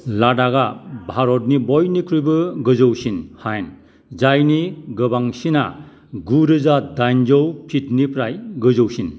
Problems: none marked